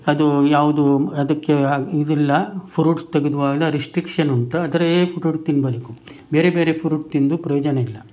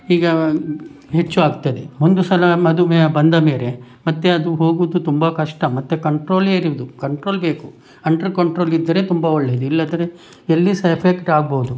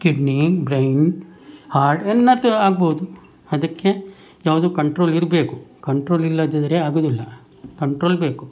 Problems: none marked